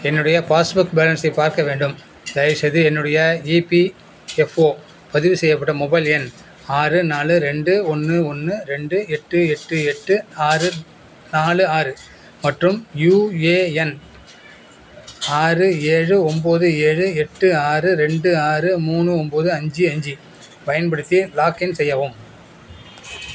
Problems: background sounds at intervals